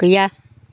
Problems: none marked